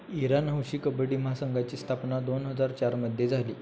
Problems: constant background noise